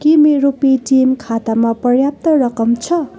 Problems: continuous background conversations